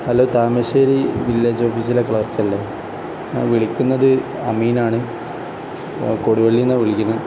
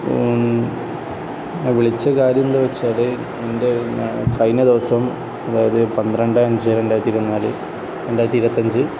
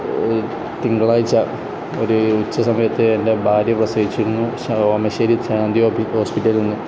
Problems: constant background noise